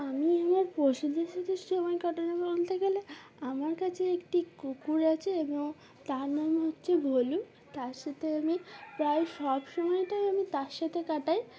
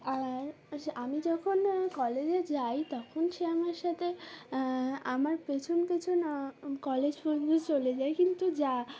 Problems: none marked